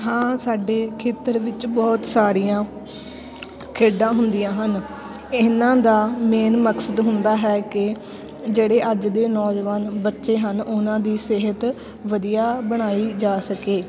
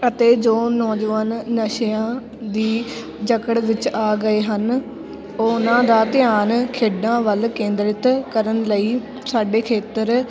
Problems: background sounds at intervals, continuous background conversations